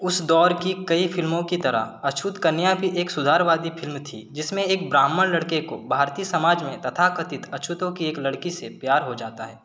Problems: none marked